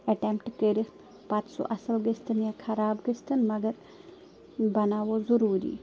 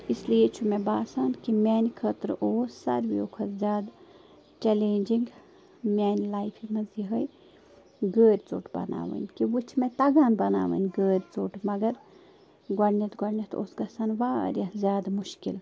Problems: constant background noise